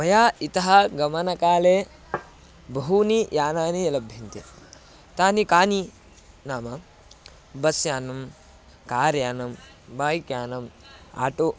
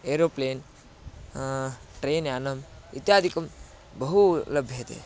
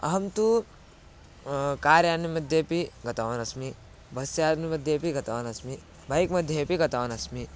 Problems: none marked